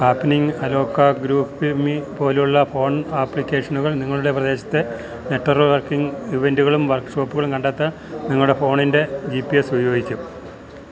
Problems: none marked